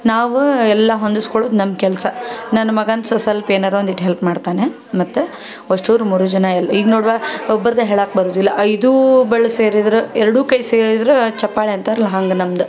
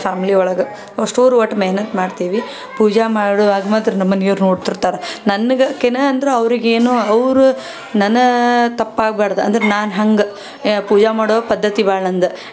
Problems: none marked